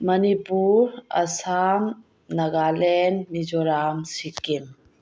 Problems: low volume